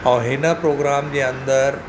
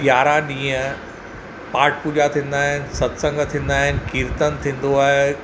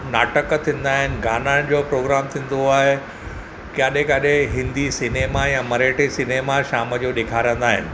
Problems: none marked